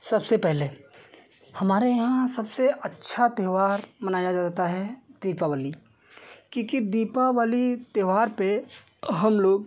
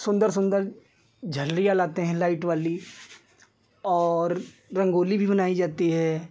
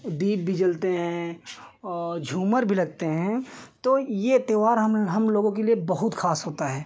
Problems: none marked